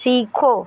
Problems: none marked